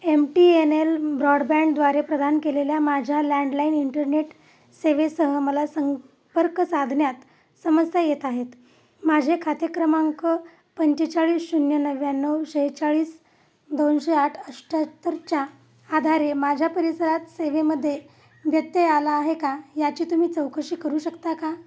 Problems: constant background noise